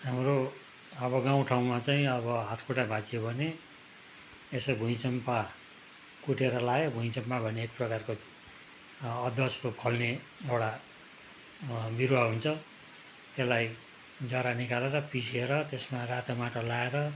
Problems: constant background noise